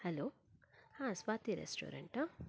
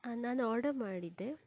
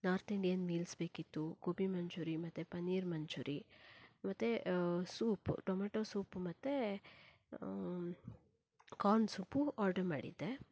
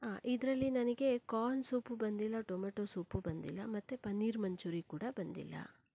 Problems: none marked